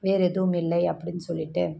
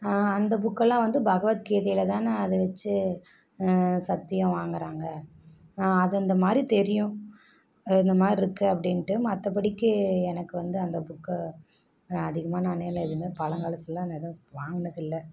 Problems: background sounds at intervals